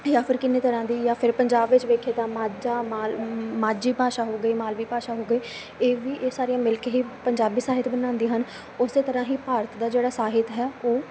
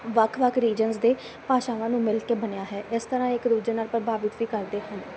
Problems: constant background noise